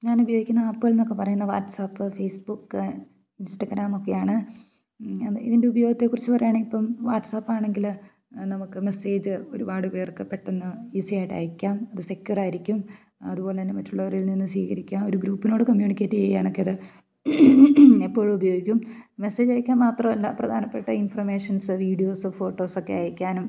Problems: none marked